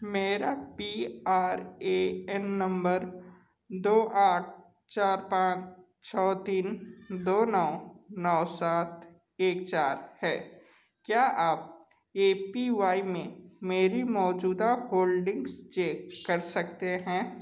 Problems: background sounds at intervals, echo